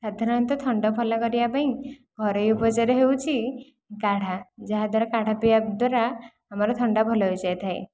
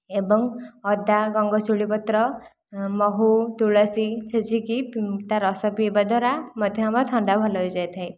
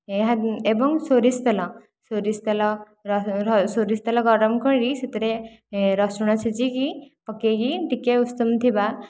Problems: none marked